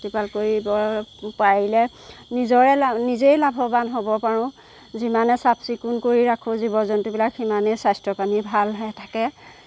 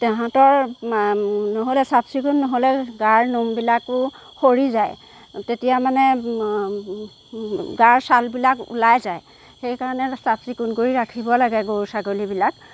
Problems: background sounds at intervals